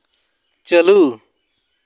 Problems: constant background noise